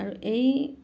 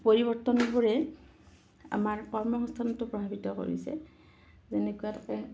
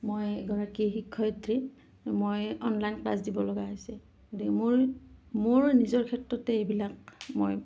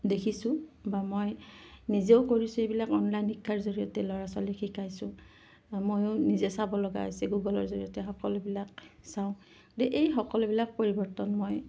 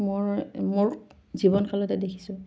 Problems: none marked